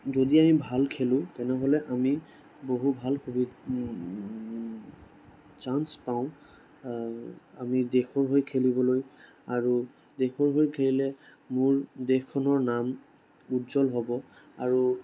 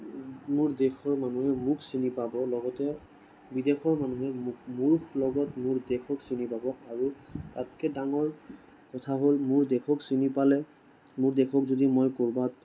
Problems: none marked